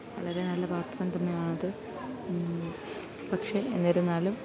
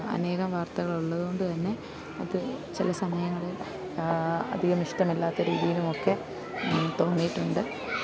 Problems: none marked